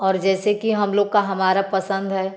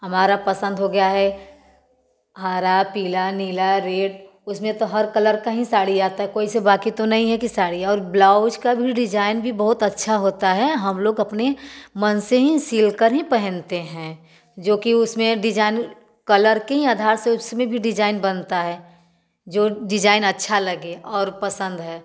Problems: background sounds at intervals, background conversations at intervals, echo